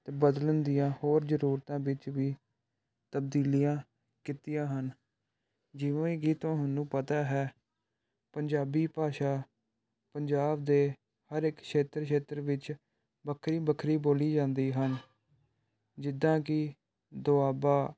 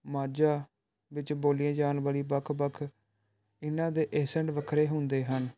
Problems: none marked